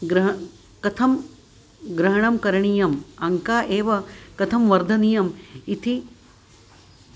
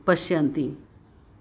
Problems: constant background noise